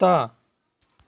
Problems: continuous background conversations